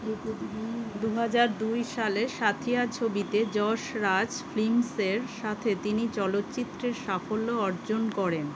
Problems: constant background noise